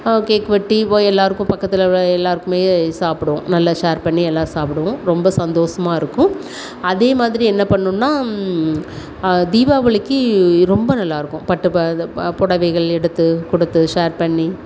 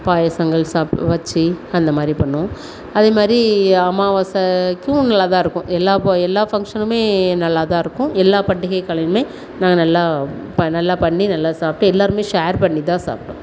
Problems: none marked